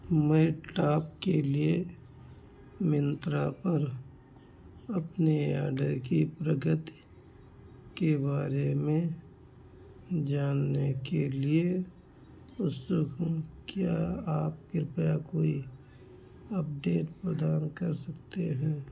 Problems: constant background noise